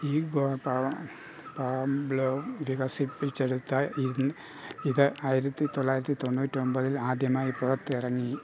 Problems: constant background noise, low volume